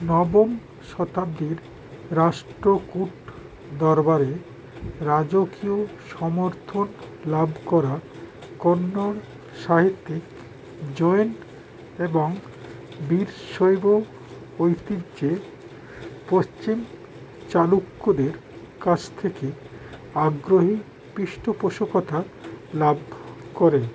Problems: constant background noise